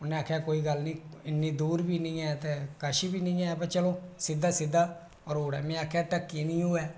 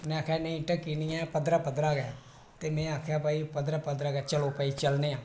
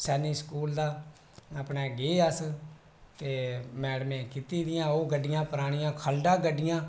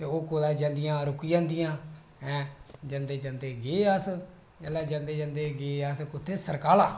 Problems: none marked